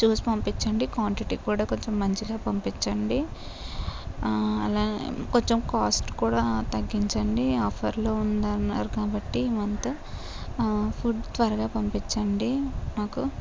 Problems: none marked